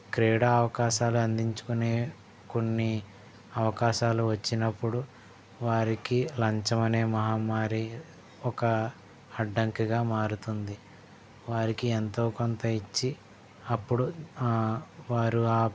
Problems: background sounds at intervals, background conversations at intervals